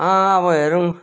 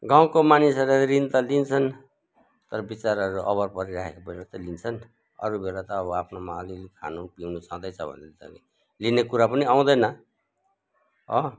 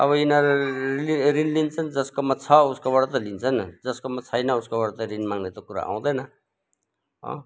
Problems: background sounds at intervals